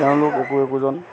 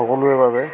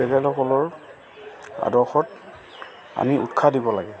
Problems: constant background noise, background conversations at intervals